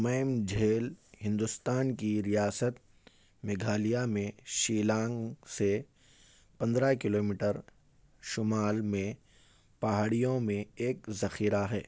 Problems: none marked